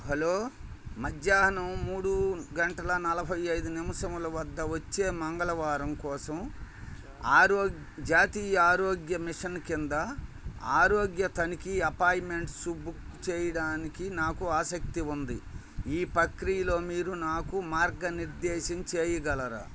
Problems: none marked